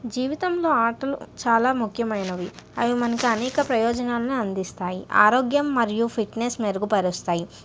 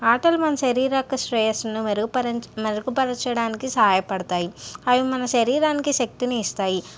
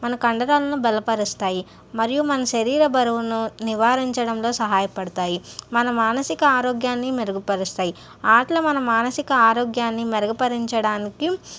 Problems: none marked